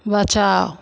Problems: constant background noise, echo